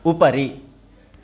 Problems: none marked